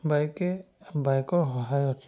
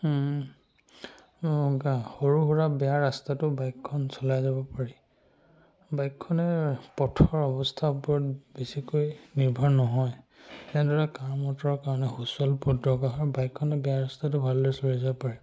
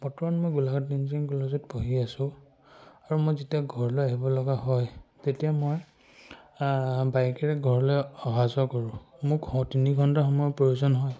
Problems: none marked